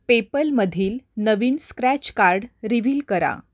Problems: none marked